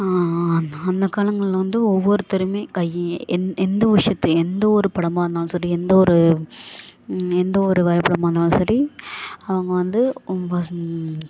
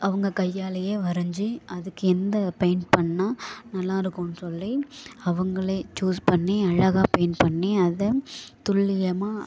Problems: background sounds at intervals